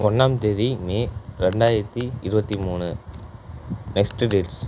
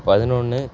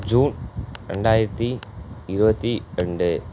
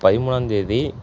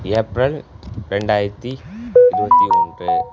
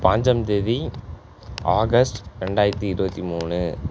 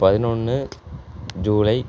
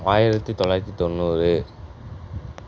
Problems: background sounds at intervals